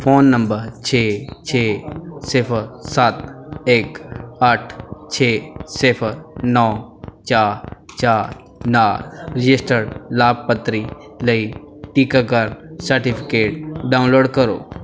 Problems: background sounds at intervals, background conversations at intervals